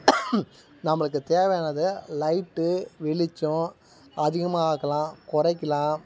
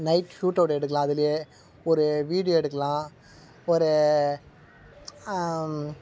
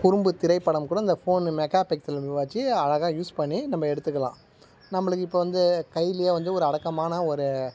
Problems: background sounds at intervals